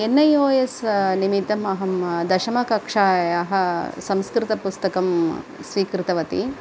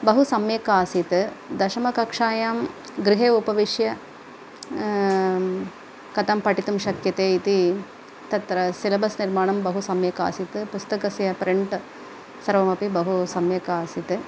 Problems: constant background noise